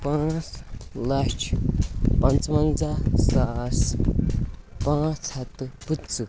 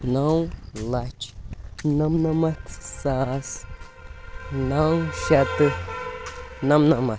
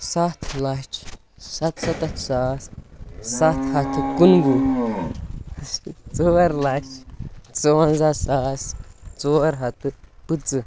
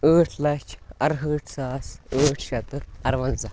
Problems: background sounds at intervals